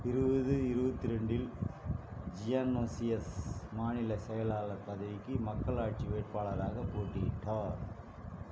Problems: background sounds at intervals, low volume